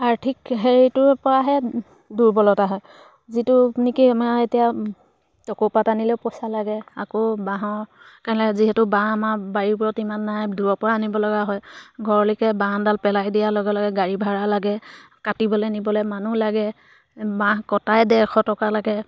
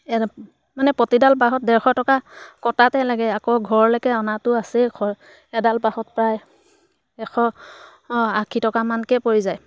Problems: background sounds at intervals